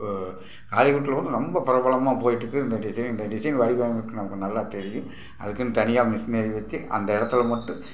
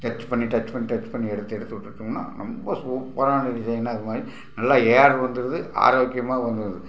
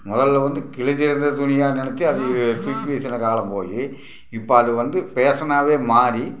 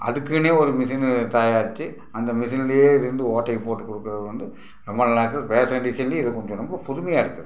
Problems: background sounds at intervals